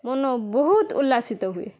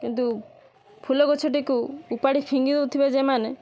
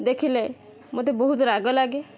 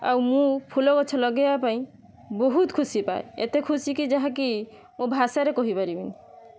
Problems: none marked